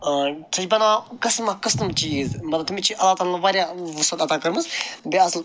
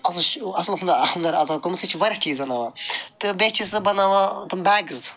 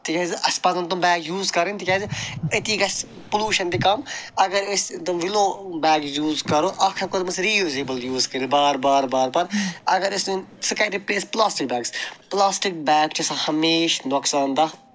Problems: none marked